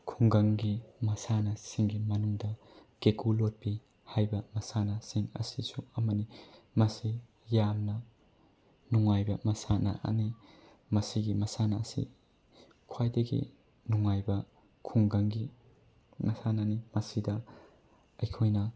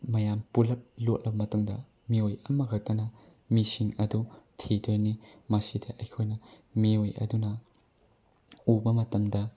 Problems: none marked